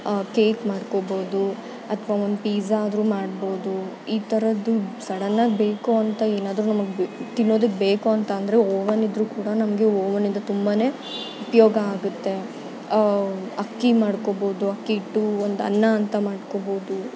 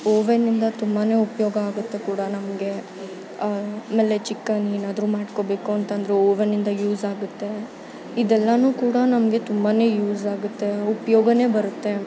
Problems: constant background noise